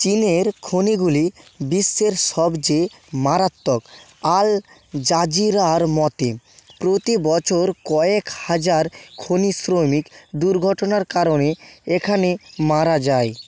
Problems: constant background noise